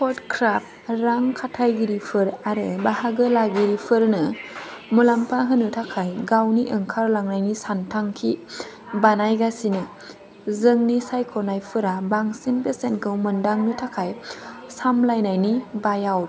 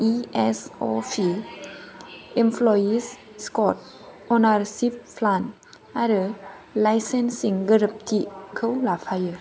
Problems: none marked